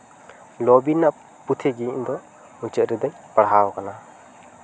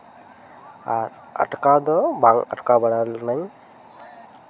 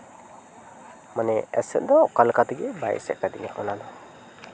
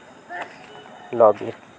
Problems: constant background noise, continuous background conversations